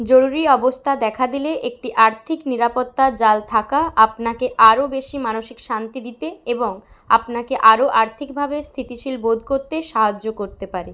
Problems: none marked